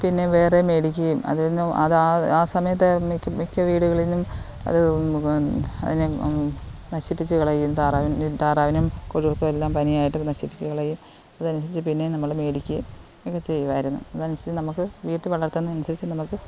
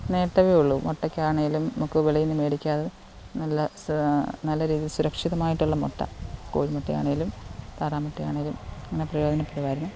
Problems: constant background noise